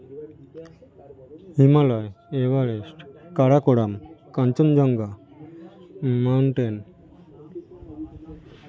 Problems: none marked